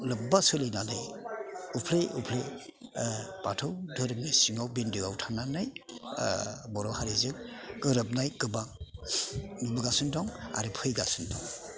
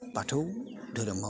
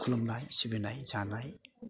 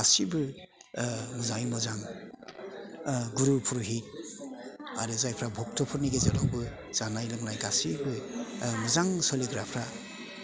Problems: constant background noise